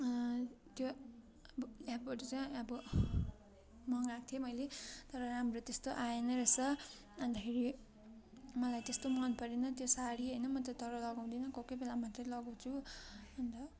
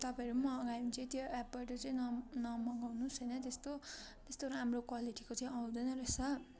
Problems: none marked